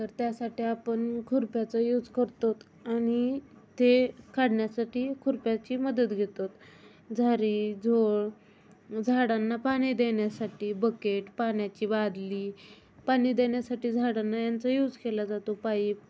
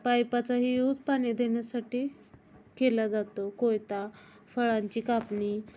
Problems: none marked